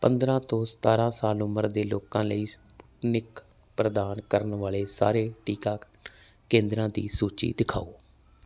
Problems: background sounds at intervals